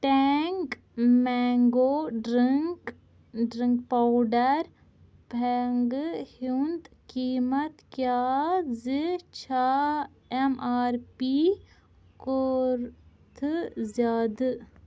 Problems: none marked